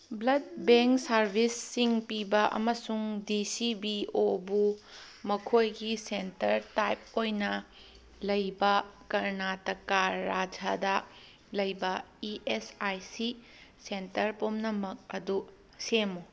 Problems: none marked